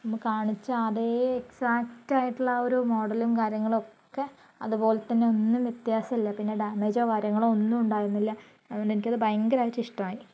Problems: low volume